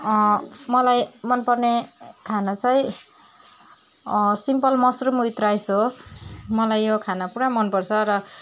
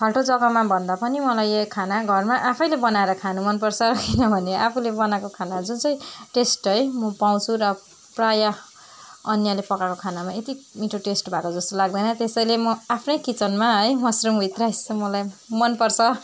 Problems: background sounds at intervals